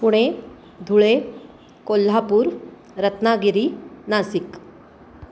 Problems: constant background noise